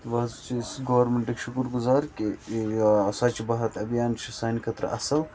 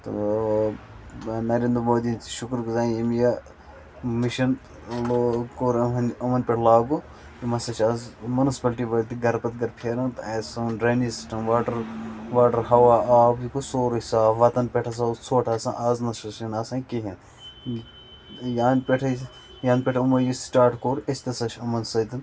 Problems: constant background noise